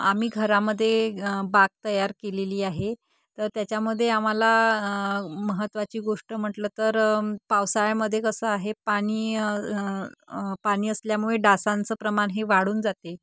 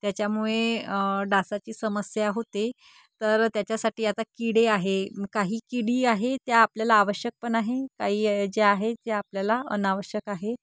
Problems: none marked